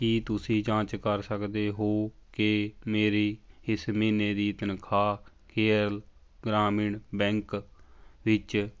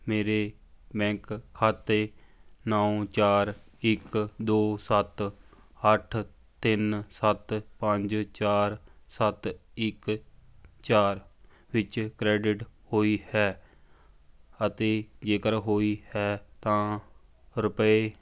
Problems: background conversations at intervals